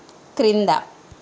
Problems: none marked